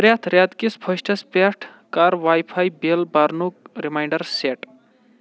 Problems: none marked